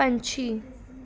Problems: background conversations at intervals